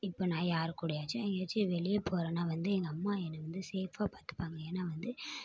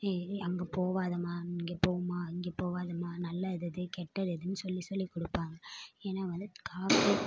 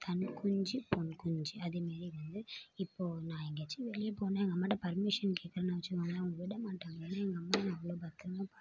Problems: low volume